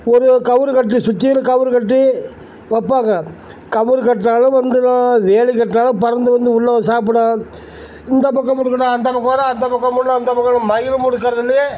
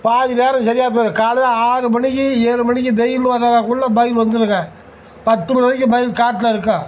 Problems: none marked